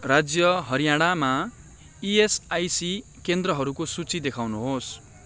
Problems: constant background noise